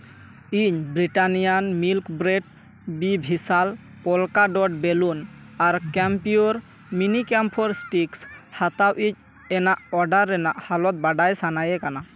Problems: none marked